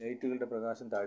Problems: low volume